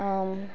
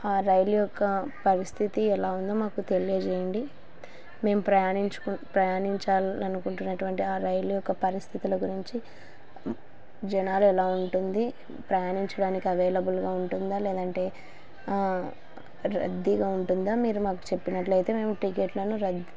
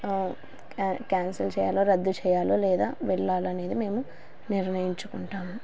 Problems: constant background noise